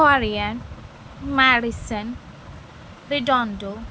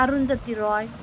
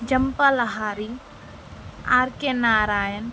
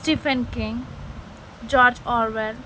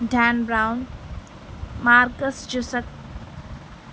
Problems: constant background noise